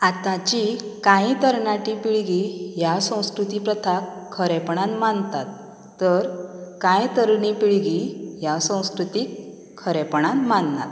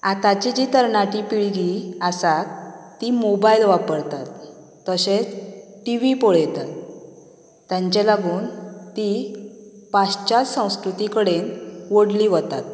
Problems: background conversations at intervals